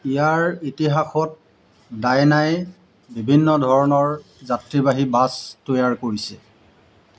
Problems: background sounds at intervals